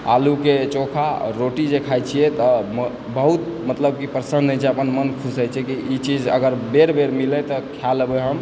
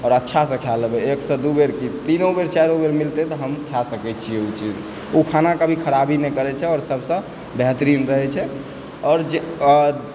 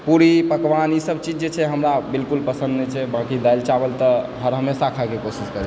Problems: constant background noise